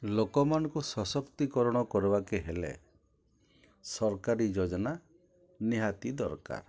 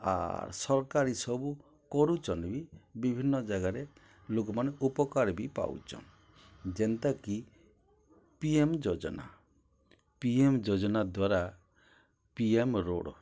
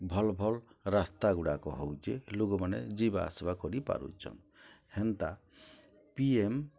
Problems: low volume